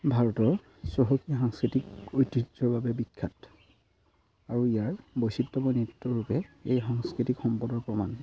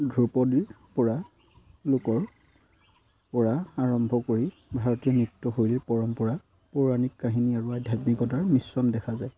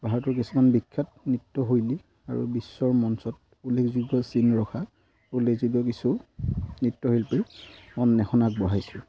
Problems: constant background noise